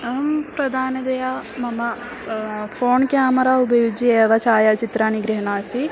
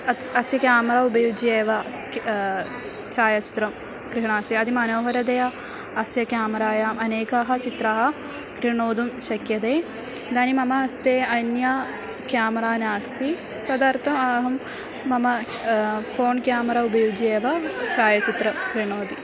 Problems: background sounds at intervals